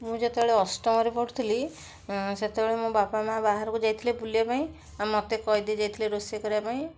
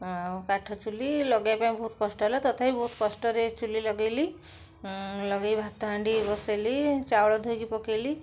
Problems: background sounds at intervals